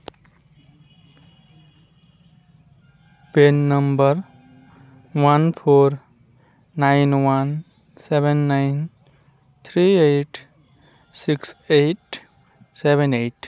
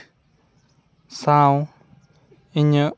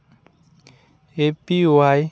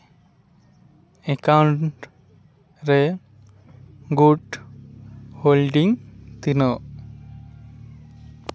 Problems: constant background noise, continuous background conversations